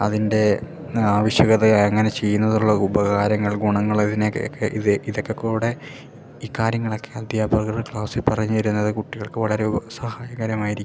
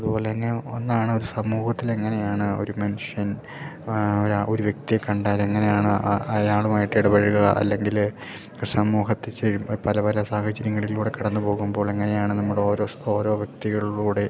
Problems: background sounds at intervals